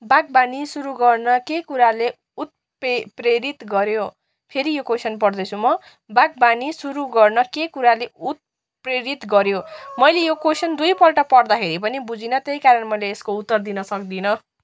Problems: background sounds at intervals